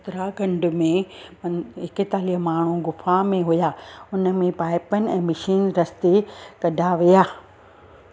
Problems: constant background noise